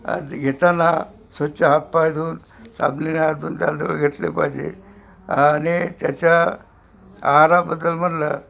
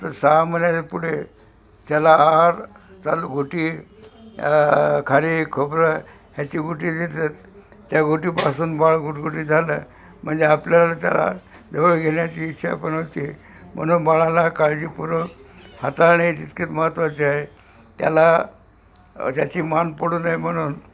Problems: constant background noise, background conversations at intervals